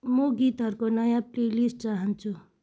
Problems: none marked